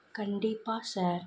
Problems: low volume